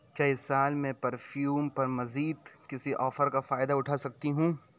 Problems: none marked